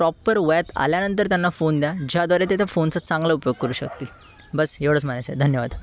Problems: constant background noise, background conversations at intervals